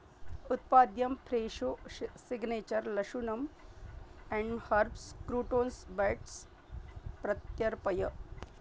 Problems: low volume